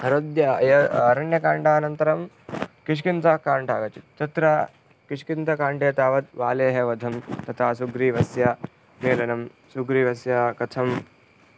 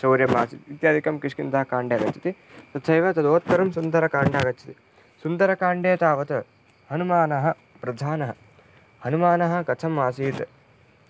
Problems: background sounds at intervals